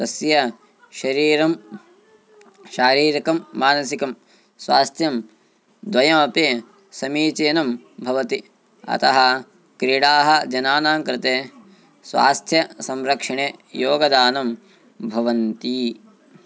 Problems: none marked